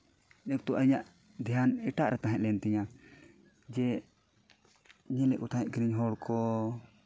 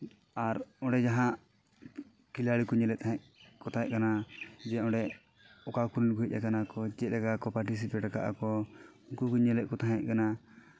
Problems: background sounds at intervals